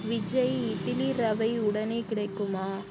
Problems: constant background noise